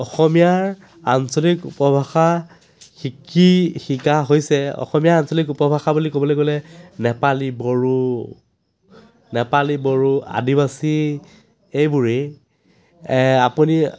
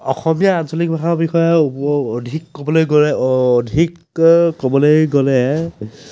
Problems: none marked